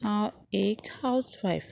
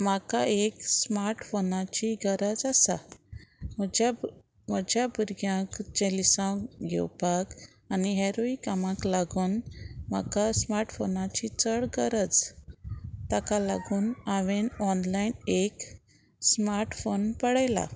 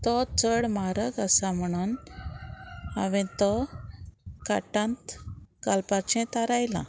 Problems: none marked